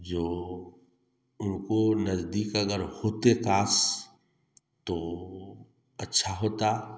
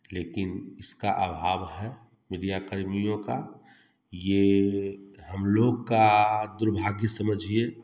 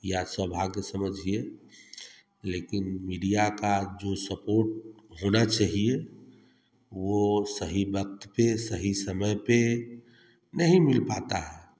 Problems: constant background noise